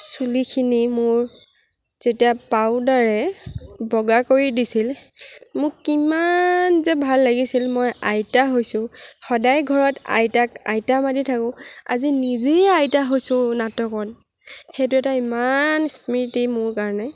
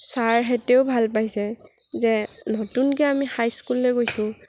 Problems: none marked